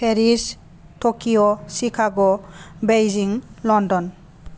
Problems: none marked